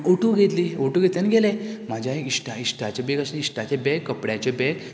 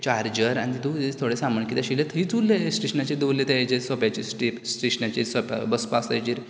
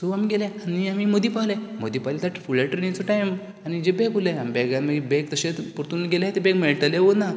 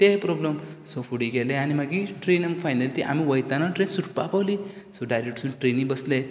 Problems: none marked